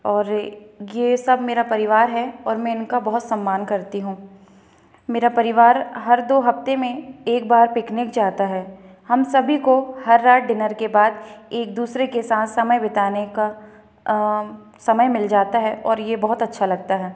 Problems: none marked